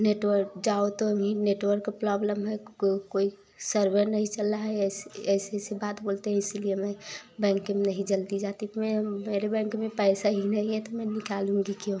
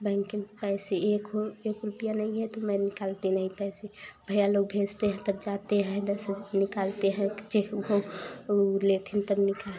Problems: constant background noise